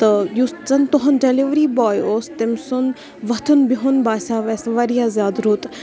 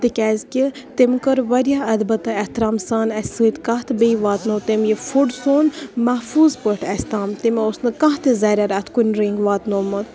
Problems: background sounds at intervals, background conversations at intervals